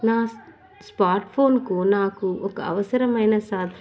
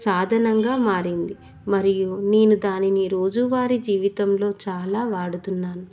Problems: none marked